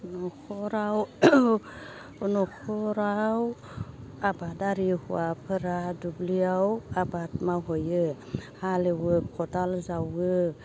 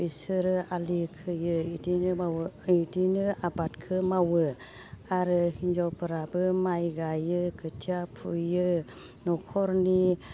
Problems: constant background noise